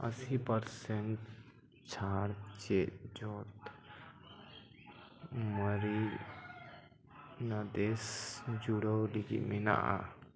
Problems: none marked